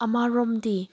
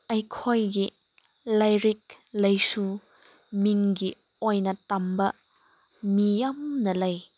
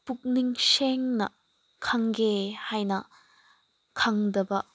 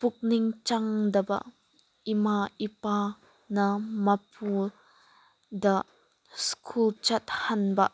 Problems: none marked